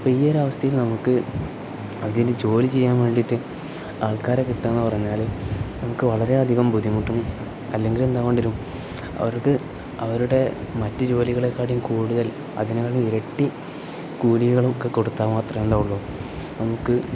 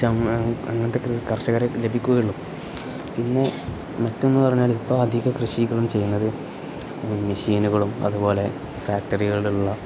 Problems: none marked